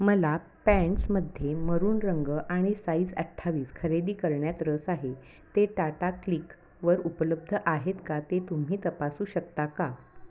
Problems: constant background noise, background conversations at intervals